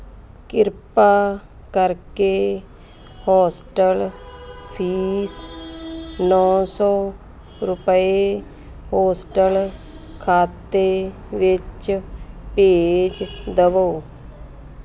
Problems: constant background noise, background conversations at intervals